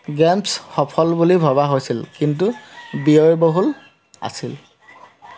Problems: constant background noise